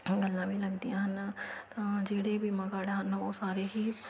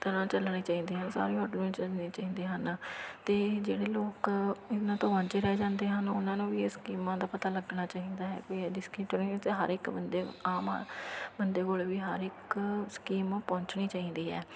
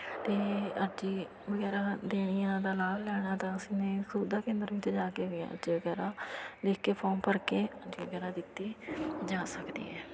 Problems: constant background noise